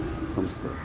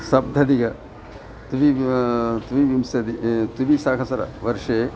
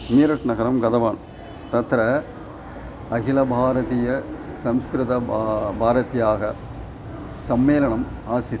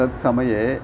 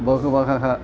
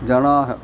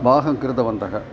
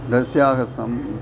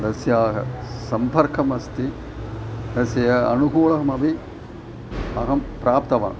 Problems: constant background noise